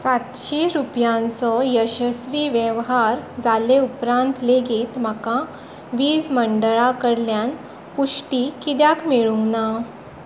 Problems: none marked